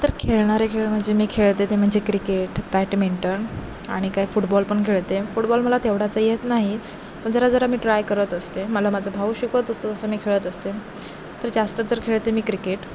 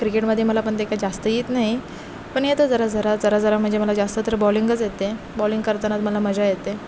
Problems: constant background noise